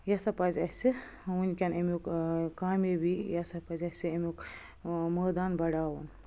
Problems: background sounds at intervals